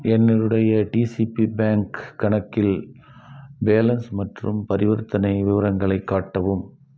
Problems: constant background noise